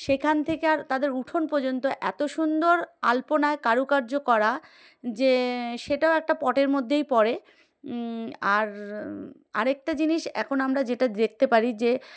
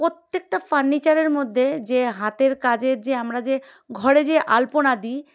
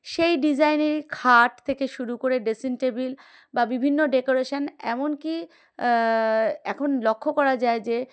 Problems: background sounds at intervals